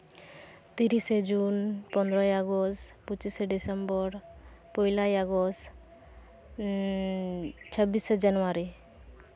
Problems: none marked